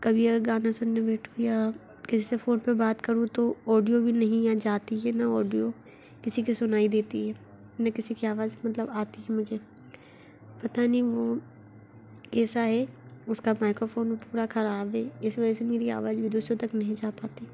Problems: none marked